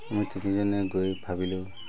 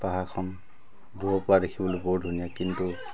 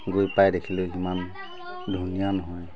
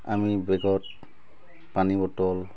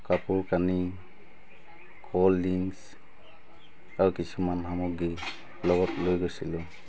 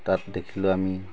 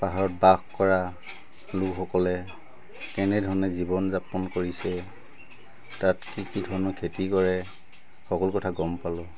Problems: constant background noise, background conversations at intervals